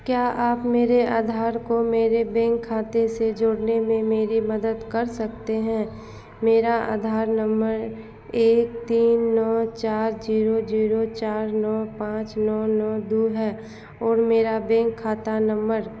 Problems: constant background noise